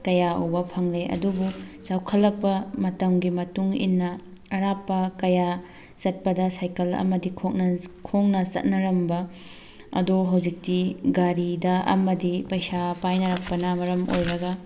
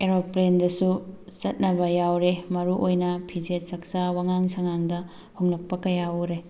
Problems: constant background noise